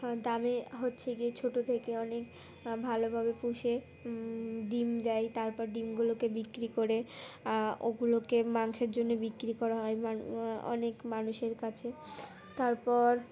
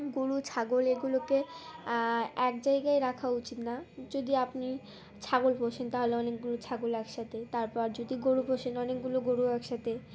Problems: constant background noise, continuous background conversations